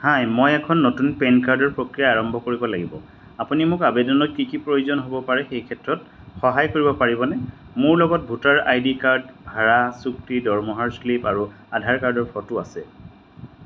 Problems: none marked